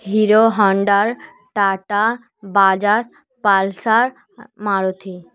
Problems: none marked